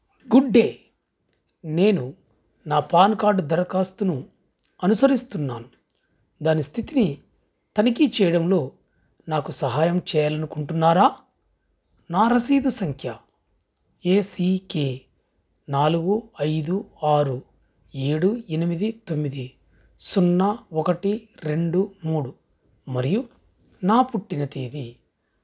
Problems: background sounds at intervals